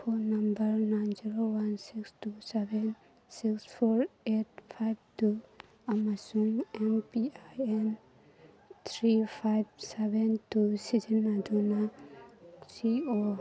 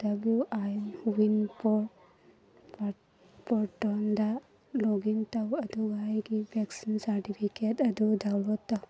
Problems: background conversations at intervals